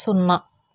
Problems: constant background noise